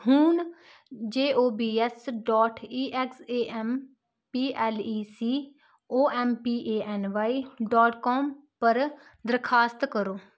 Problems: constant background noise